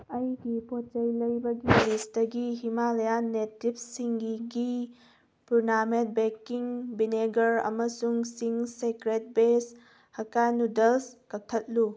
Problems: background sounds at intervals